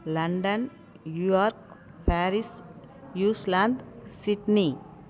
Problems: none marked